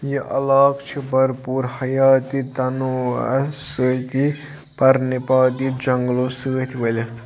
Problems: background sounds at intervals, background conversations at intervals